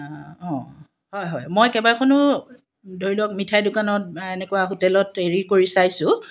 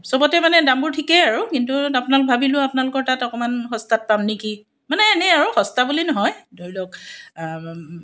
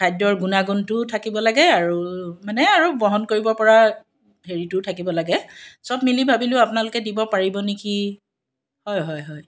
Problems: none marked